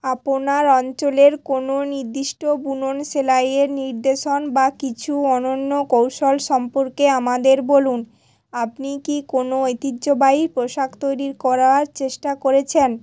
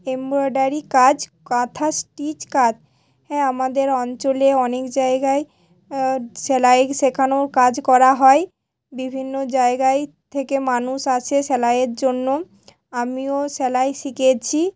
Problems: background sounds at intervals